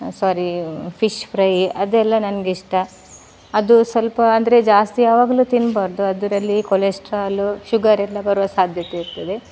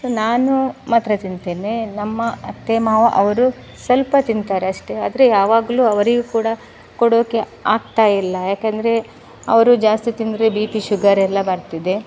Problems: none marked